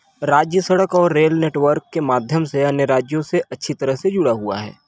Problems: none marked